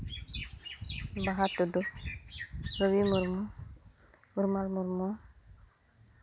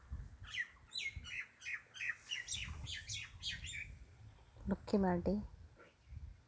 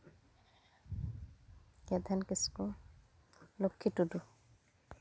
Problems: none marked